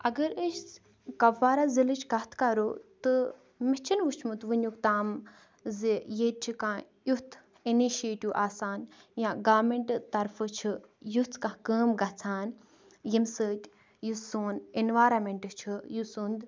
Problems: background sounds at intervals